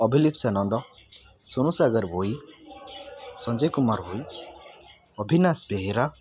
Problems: constant background noise